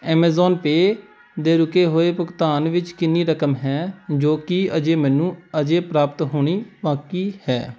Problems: background sounds at intervals